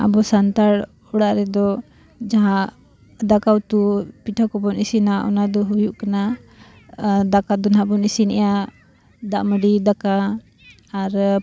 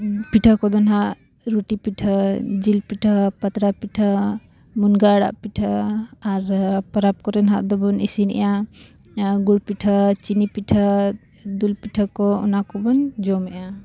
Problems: none marked